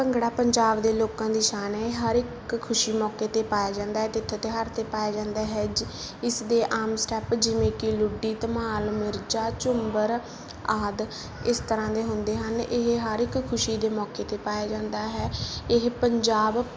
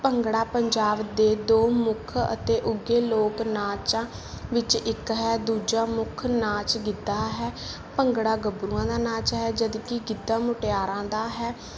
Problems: background sounds at intervals